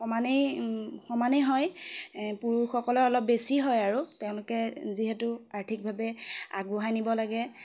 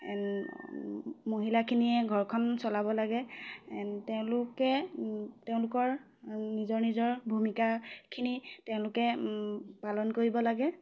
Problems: none marked